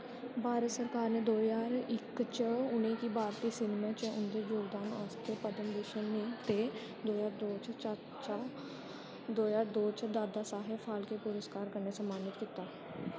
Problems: constant background noise, low volume